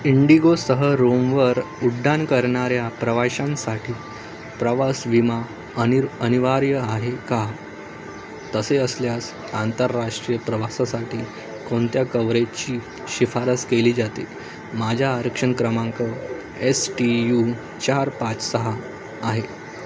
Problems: constant background noise